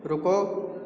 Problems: none marked